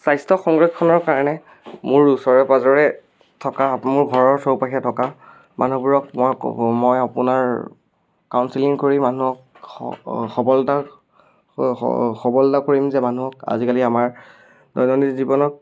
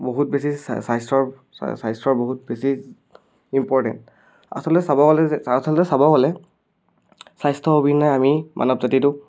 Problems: none marked